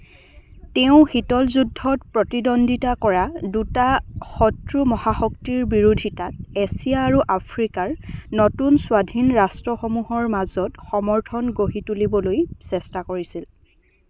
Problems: none marked